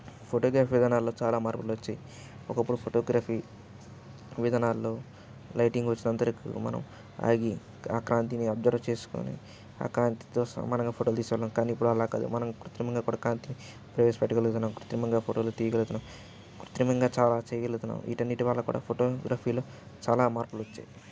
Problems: background sounds at intervals